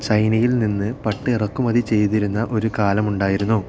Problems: constant background noise